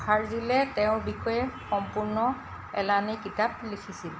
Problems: constant background noise